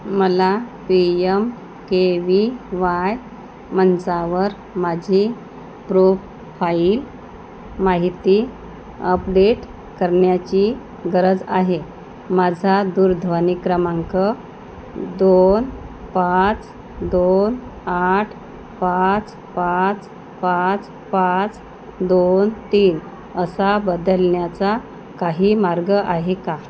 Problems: constant background noise